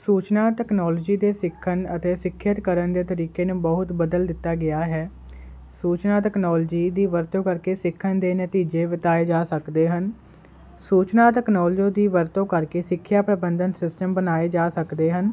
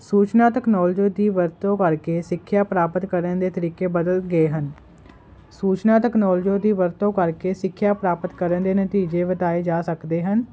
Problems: constant background noise